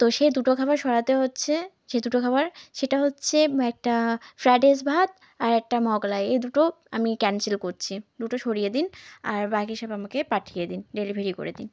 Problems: constant background noise